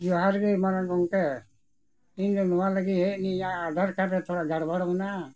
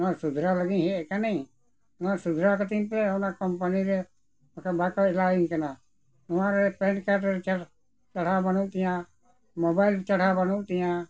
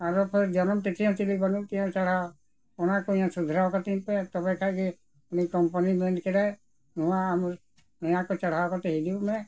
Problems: none marked